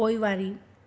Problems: constant background noise, echo